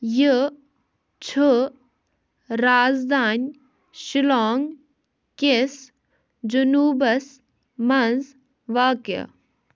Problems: none marked